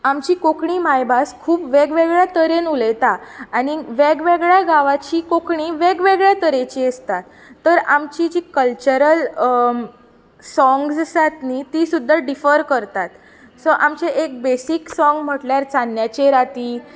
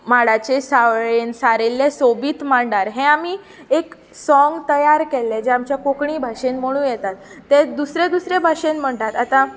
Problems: constant background noise